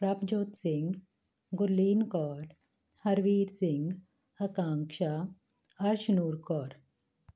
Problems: none marked